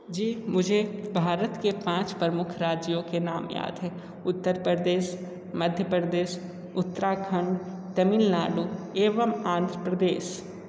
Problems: constant background noise